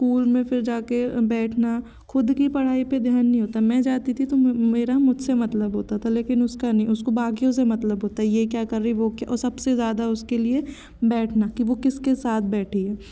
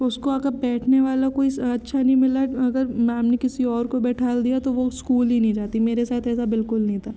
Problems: constant background noise, background conversations at intervals